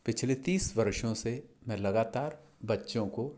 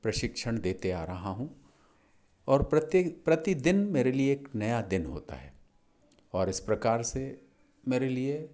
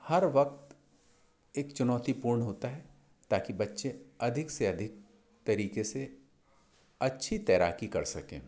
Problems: none marked